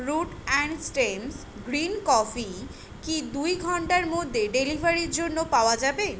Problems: none marked